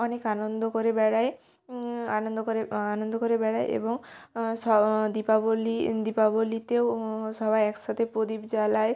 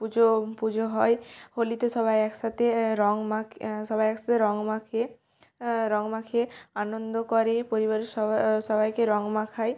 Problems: background sounds at intervals